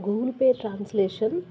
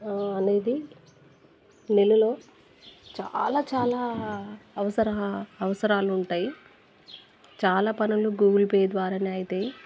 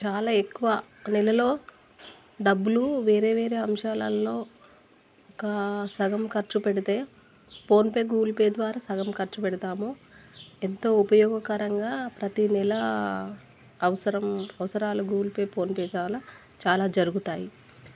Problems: background sounds at intervals